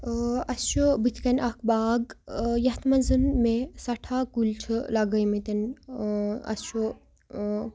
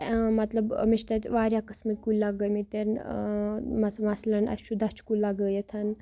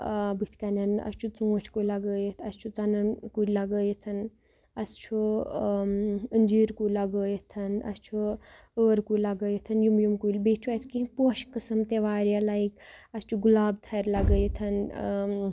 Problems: none marked